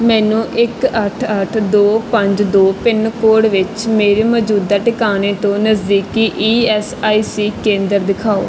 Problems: background sounds at intervals